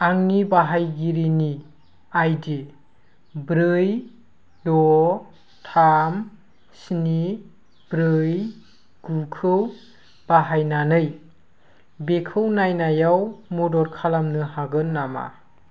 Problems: constant background noise